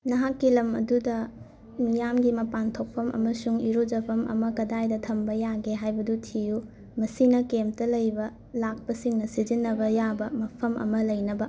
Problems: constant background noise, background conversations at intervals